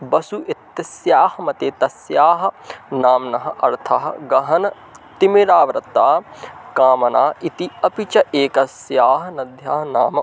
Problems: constant background noise